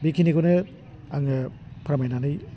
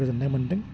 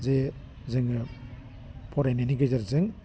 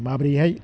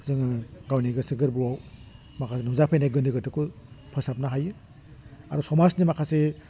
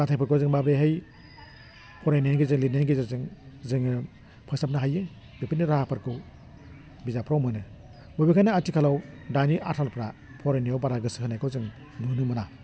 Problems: low volume